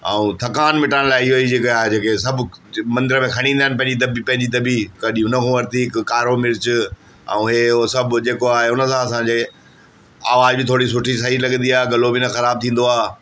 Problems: constant background noise, background conversations at intervals, echo